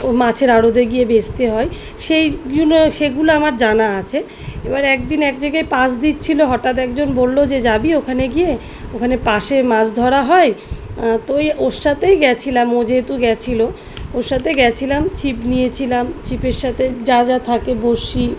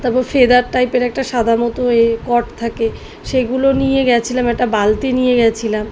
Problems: constant background noise